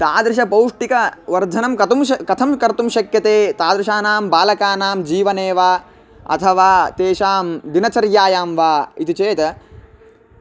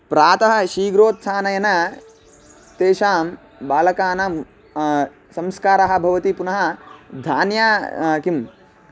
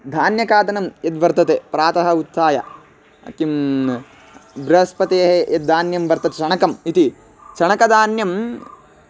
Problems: constant background noise